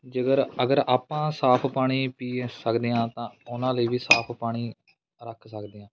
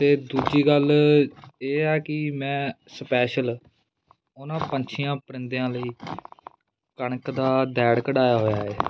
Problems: constant background noise